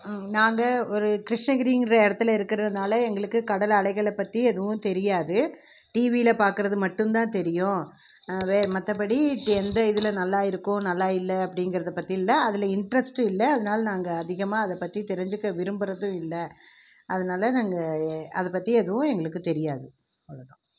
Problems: none marked